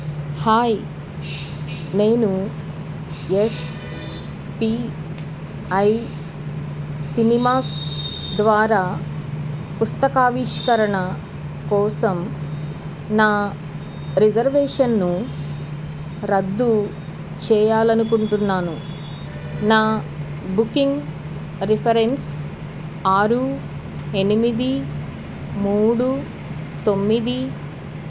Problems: background sounds at intervals